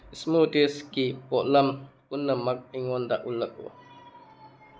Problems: background sounds at intervals